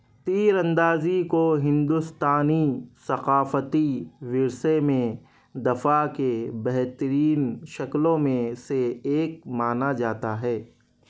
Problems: none marked